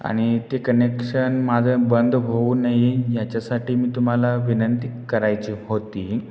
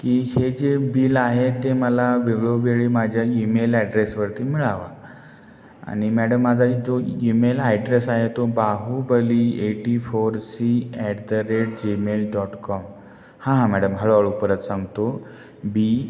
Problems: none marked